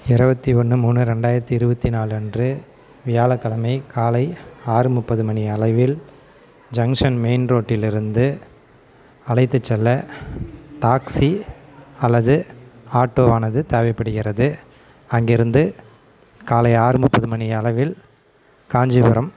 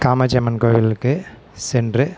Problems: none marked